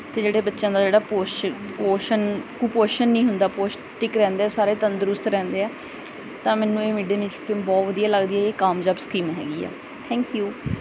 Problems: background sounds at intervals